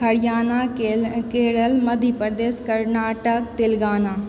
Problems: background conversations at intervals